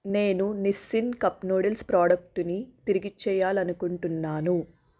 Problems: constant background noise